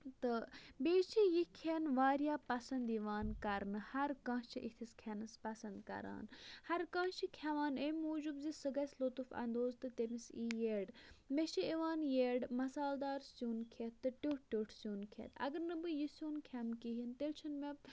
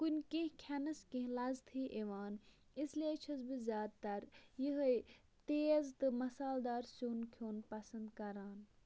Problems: low volume